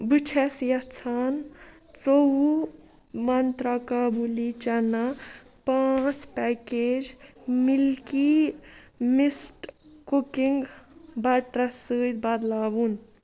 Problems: none marked